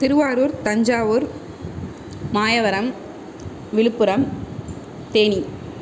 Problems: none marked